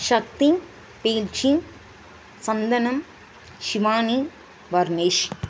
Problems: constant background noise